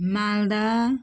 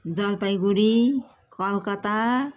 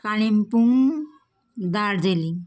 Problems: constant background noise